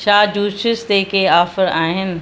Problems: constant background noise